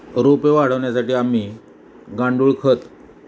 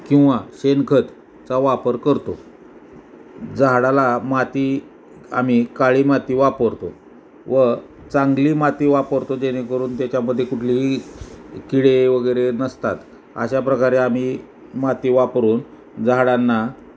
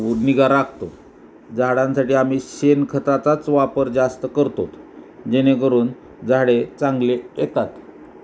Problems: background sounds at intervals